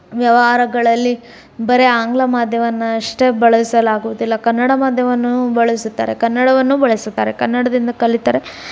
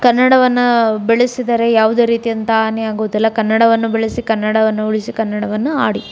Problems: none marked